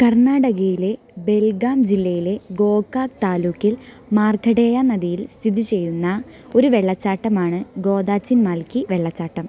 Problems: constant background noise